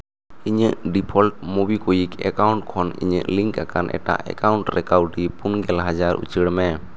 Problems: constant background noise